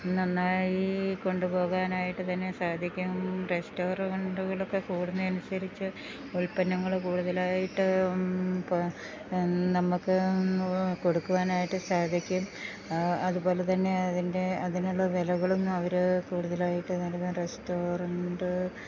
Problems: constant background noise